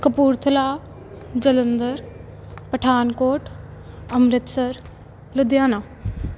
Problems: background sounds at intervals